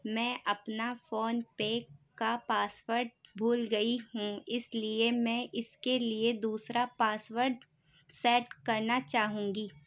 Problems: background sounds at intervals